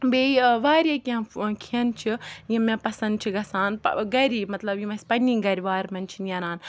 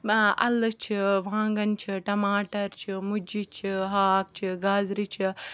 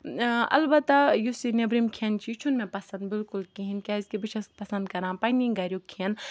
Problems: background sounds at intervals